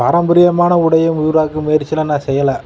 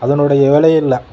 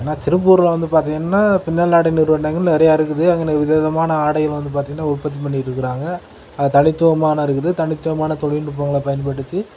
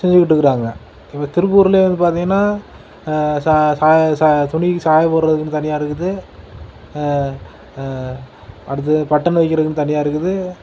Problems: constant background noise